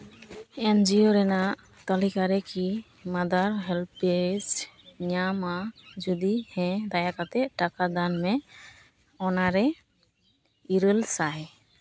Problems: constant background noise